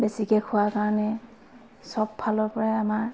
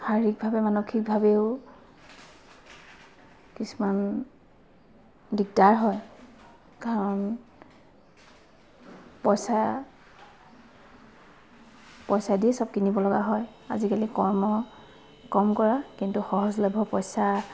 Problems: constant background noise, background conversations at intervals